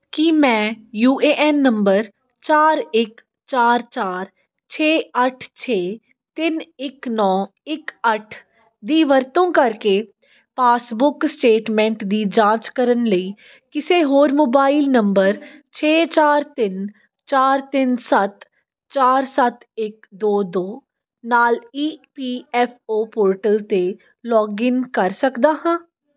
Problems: background conversations at intervals